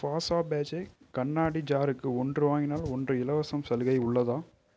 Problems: none marked